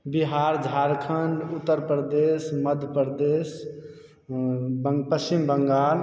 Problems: none marked